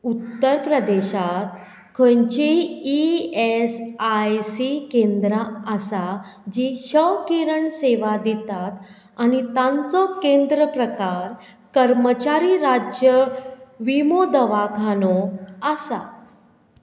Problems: none marked